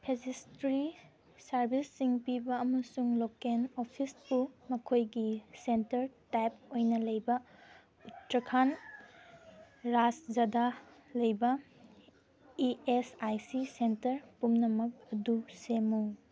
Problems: background sounds at intervals